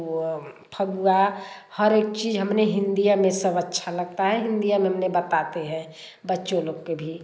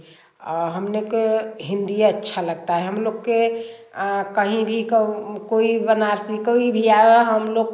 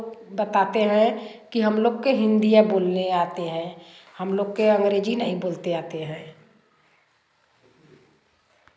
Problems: constant background noise, background conversations at intervals